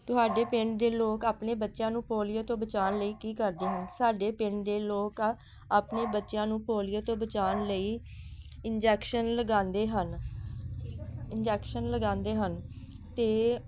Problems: background sounds at intervals